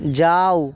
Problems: background sounds at intervals